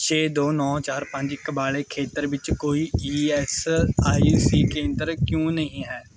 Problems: none marked